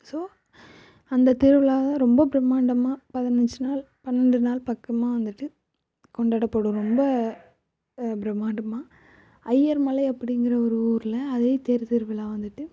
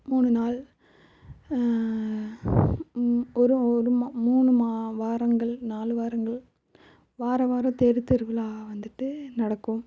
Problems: constant background noise, low volume